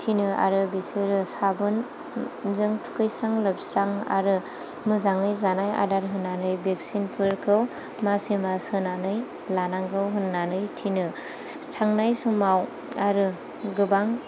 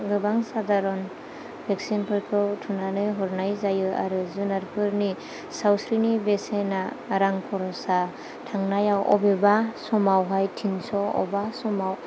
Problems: low volume